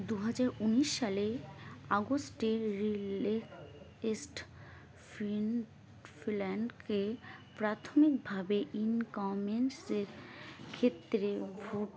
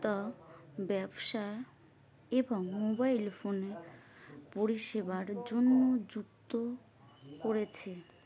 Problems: none marked